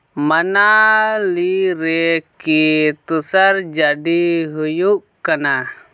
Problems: none marked